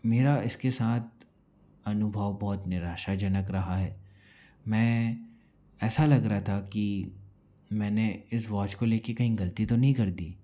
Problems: low volume